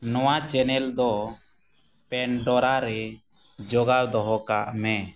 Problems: none marked